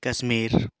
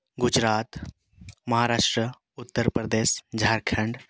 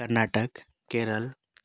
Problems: background sounds at intervals